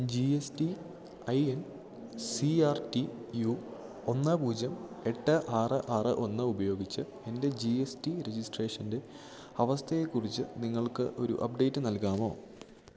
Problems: low volume